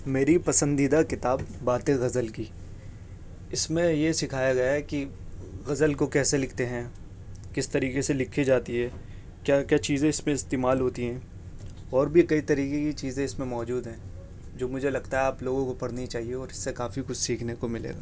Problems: none marked